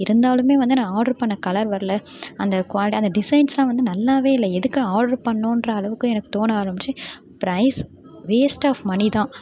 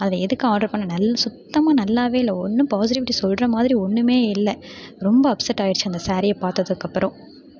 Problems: constant background noise, background conversations at intervals